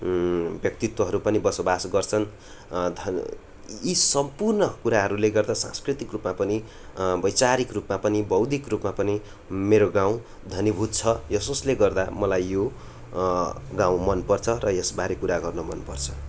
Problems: none marked